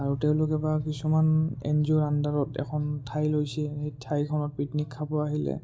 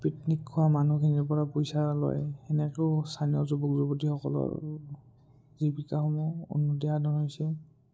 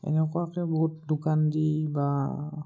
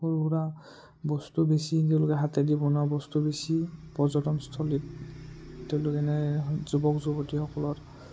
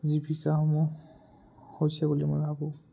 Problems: low volume